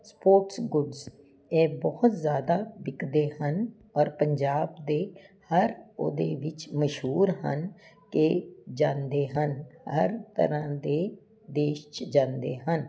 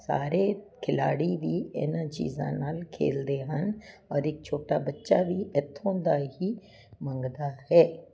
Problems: none marked